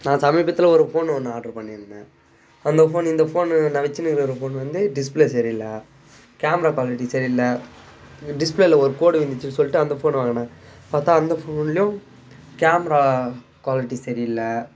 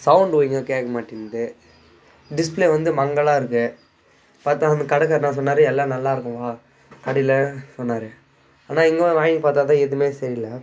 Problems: constant background noise, background conversations at intervals